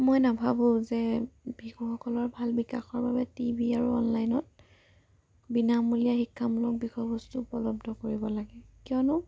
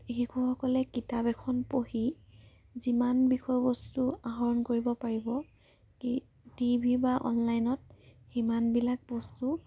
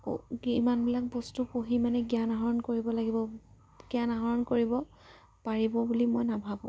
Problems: low volume